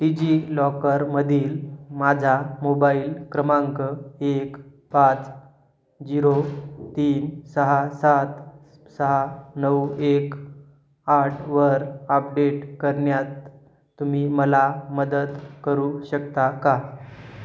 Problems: none marked